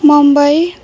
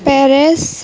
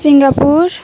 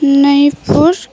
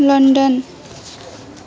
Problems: constant background noise, continuous background conversations